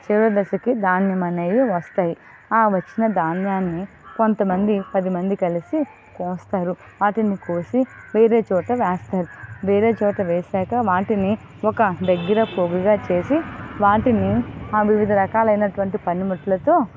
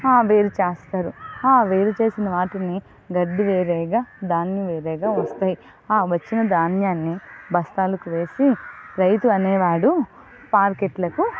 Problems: constant background noise